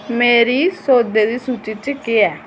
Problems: none marked